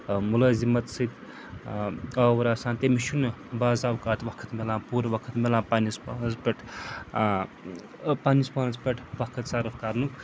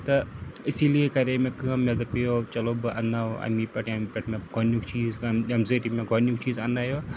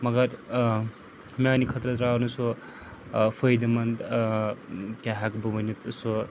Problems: constant background noise